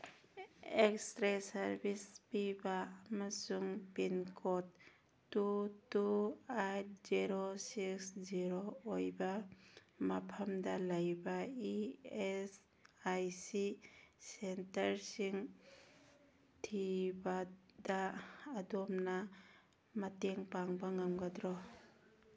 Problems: background conversations at intervals